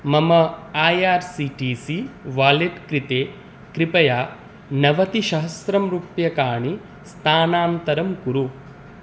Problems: none marked